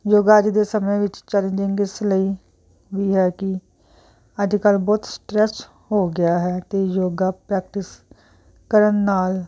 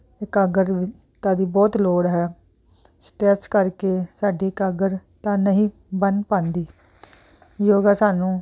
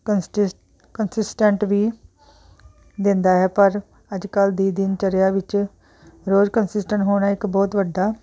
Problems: background conversations at intervals